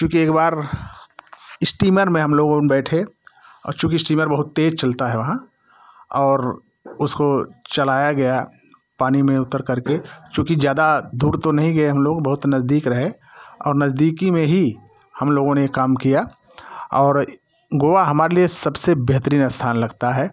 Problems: constant background noise